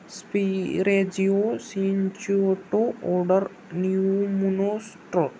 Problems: none marked